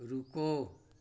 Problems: constant background noise